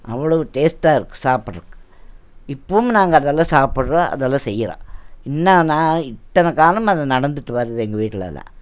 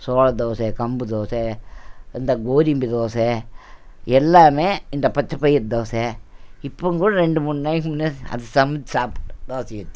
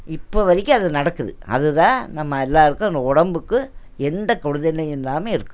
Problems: none marked